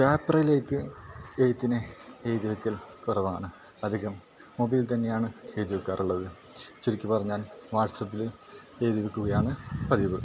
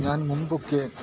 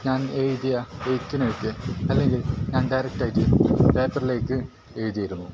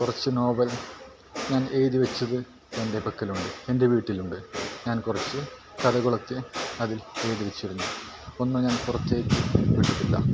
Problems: background sounds at intervals, low volume